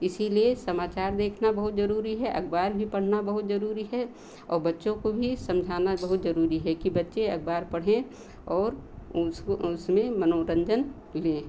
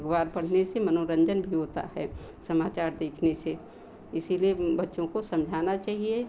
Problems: none marked